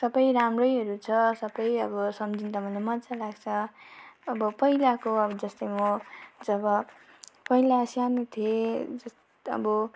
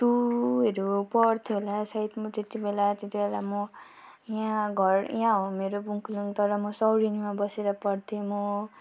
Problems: constant background noise